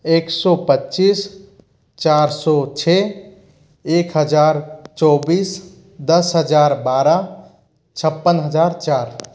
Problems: constant background noise